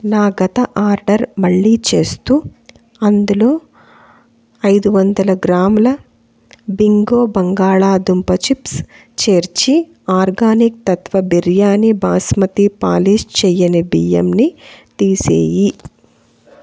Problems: constant background noise